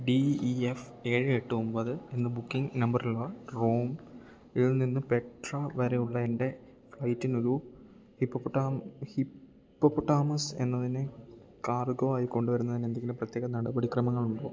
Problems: low volume